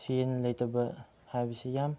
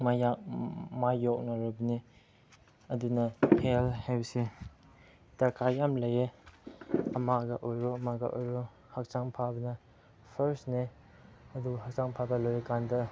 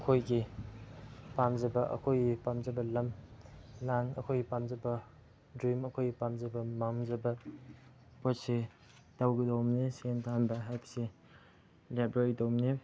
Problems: background sounds at intervals